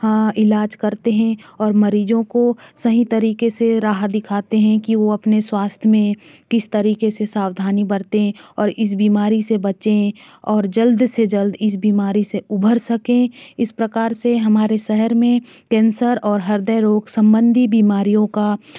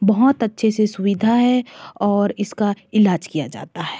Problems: none marked